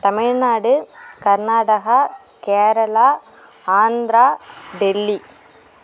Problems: constant background noise